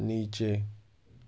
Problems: constant background noise, low volume